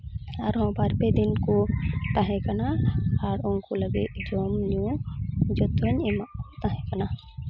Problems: background sounds at intervals